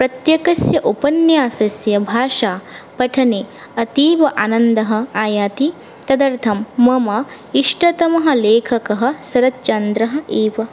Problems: none marked